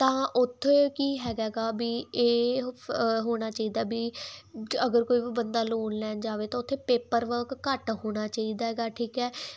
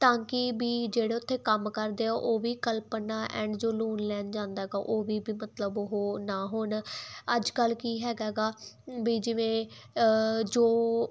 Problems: background sounds at intervals